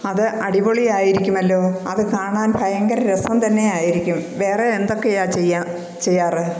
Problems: none marked